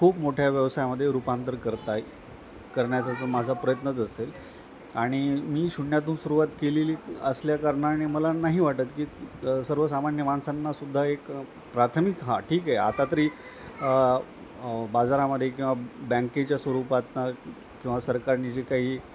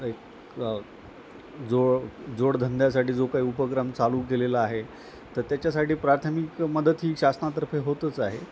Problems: constant background noise, background conversations at intervals